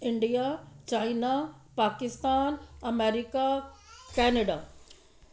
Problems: background sounds at intervals